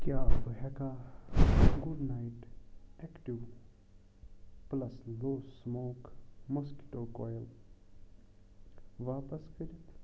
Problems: constant background noise, low volume